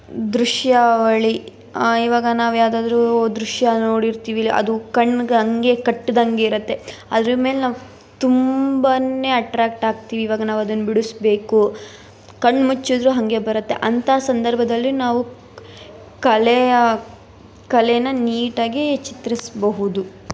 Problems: background sounds at intervals